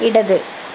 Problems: constant background noise